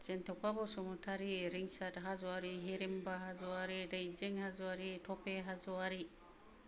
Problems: low volume